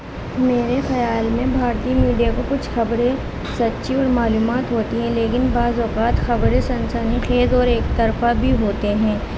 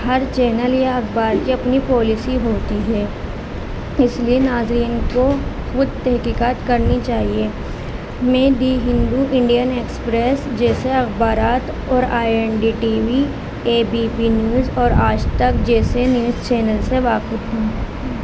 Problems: constant background noise